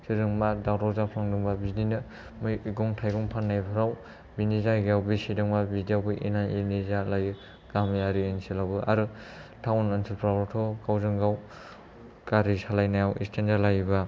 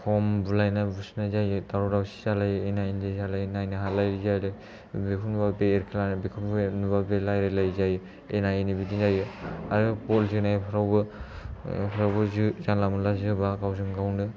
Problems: low volume